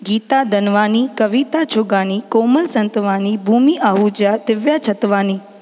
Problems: constant background noise, echo